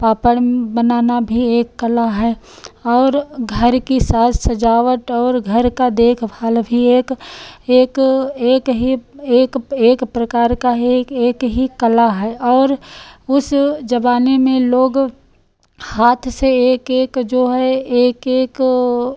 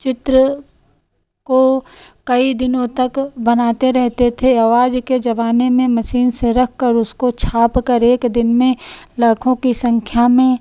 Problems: none marked